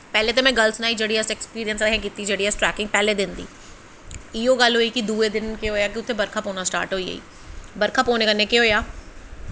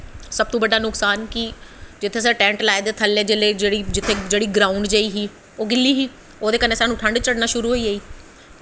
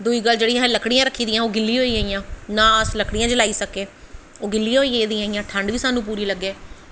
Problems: echo